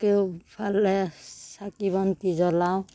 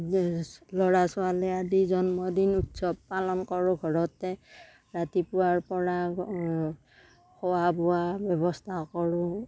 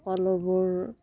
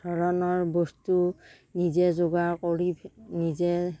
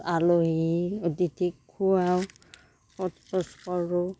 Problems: none marked